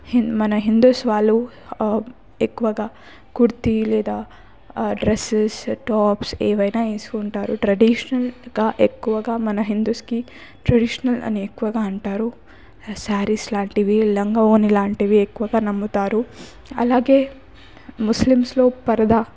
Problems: background sounds at intervals